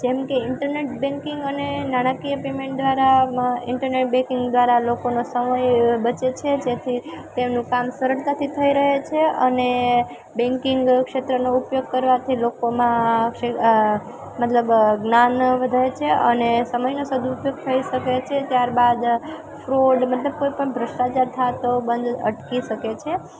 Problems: none marked